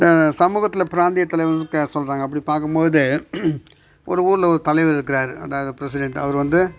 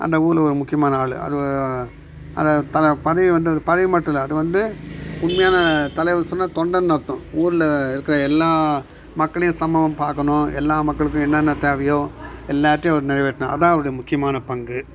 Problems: background sounds at intervals